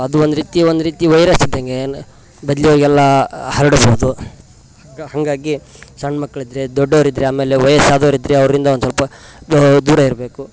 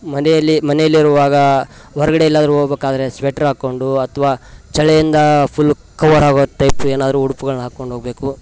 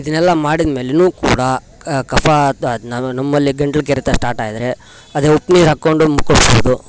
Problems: constant background noise